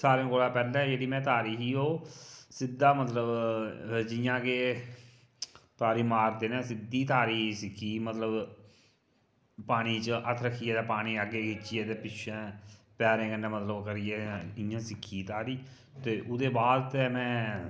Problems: none marked